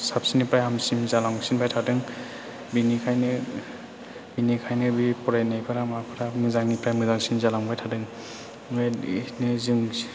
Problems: background sounds at intervals